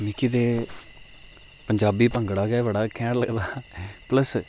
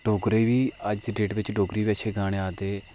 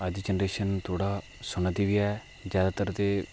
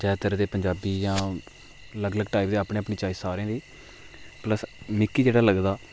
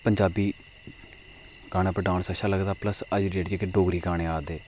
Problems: constant background noise